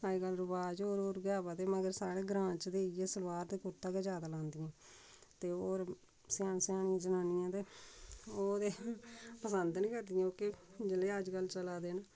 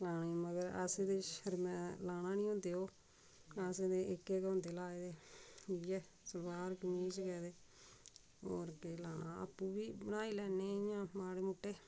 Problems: constant background noise, background conversations at intervals, low volume